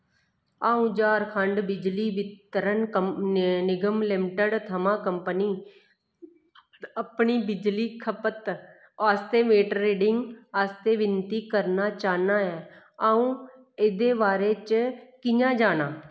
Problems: none marked